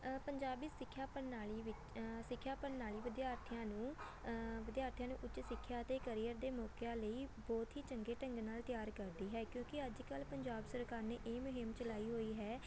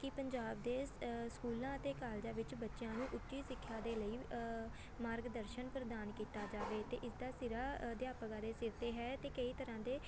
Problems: constant background noise, background conversations at intervals